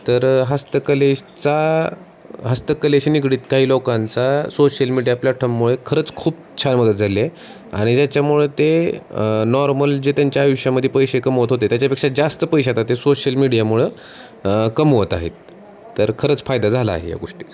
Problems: none marked